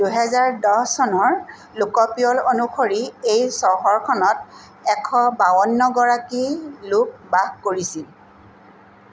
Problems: constant background noise